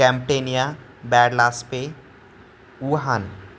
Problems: none marked